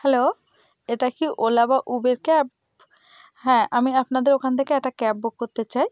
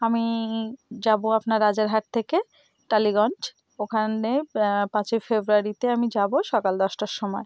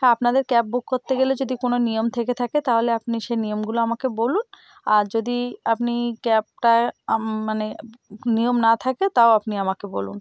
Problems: none marked